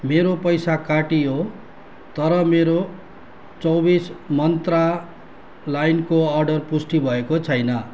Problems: none marked